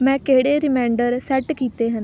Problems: none marked